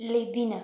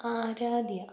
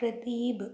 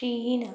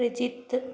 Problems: none marked